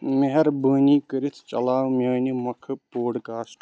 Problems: constant background noise